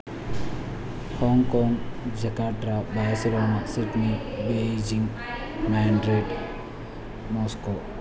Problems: constant background noise, low volume